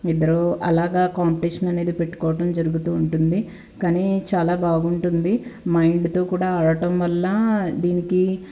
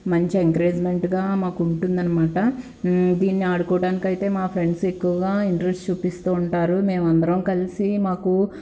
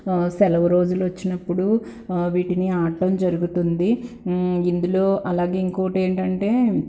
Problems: none marked